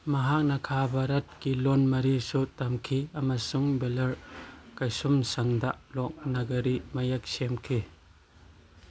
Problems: none marked